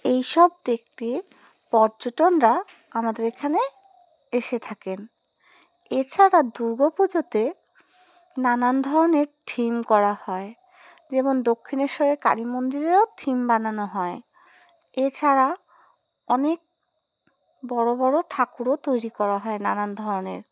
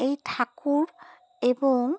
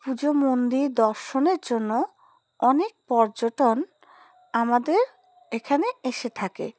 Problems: none marked